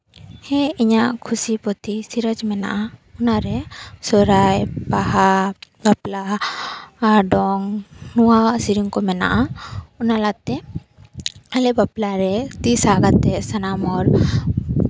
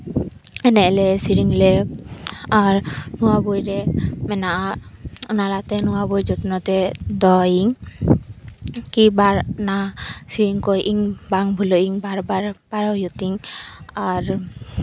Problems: background sounds at intervals